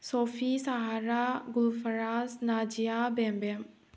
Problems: low volume